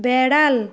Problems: none marked